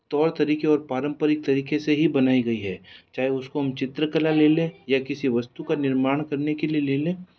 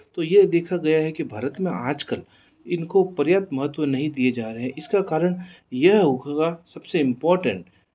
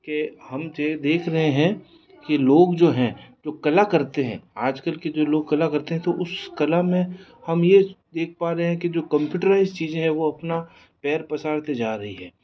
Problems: background conversations at intervals